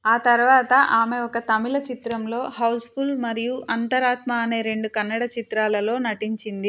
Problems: none marked